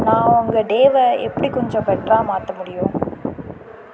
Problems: background sounds at intervals